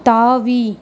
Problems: none marked